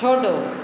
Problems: constant background noise, echo